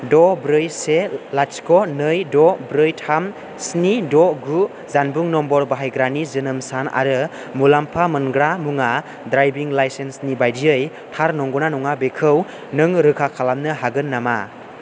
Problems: constant background noise